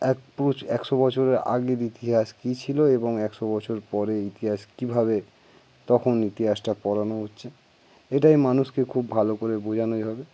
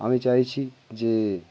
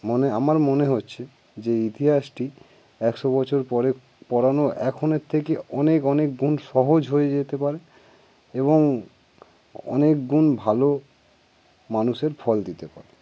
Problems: background sounds at intervals